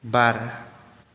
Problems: none marked